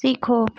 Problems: none marked